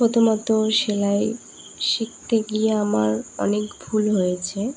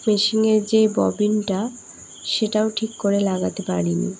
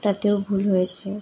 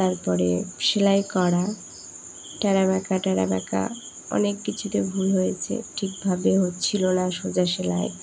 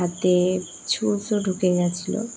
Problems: background sounds at intervals